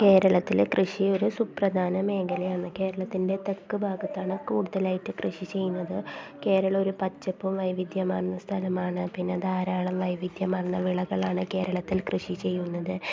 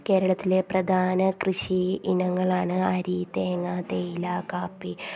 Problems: constant background noise, low volume